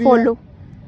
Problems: background sounds at intervals